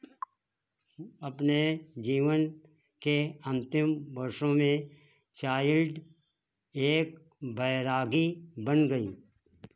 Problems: none marked